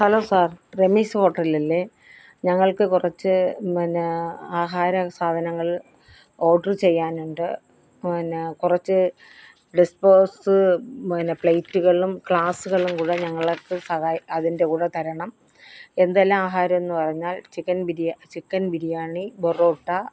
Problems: none marked